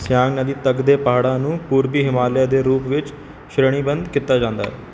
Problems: background sounds at intervals